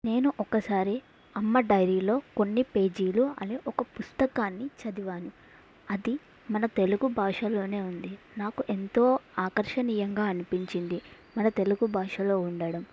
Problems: background sounds at intervals